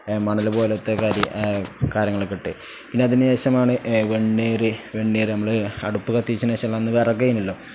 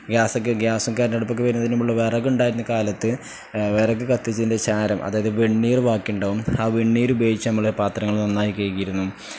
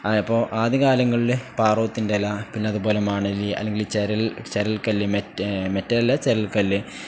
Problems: none marked